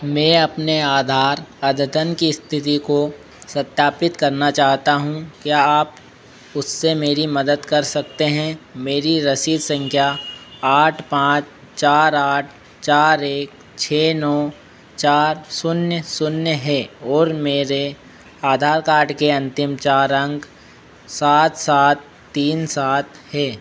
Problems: constant background noise